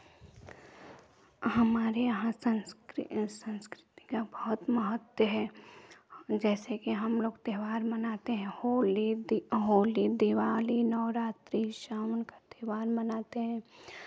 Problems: background sounds at intervals, background conversations at intervals